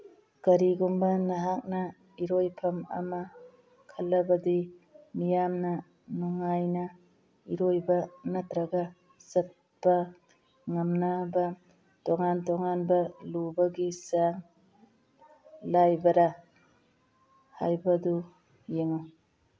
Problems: background sounds at intervals